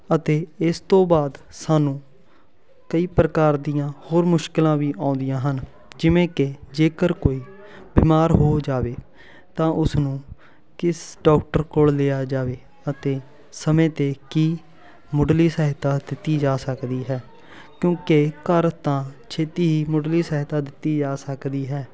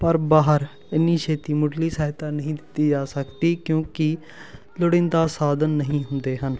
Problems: constant background noise, continuous background conversations